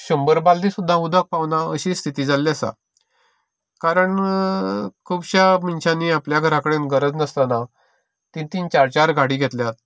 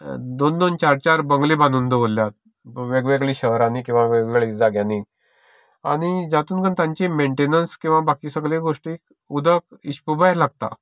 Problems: none marked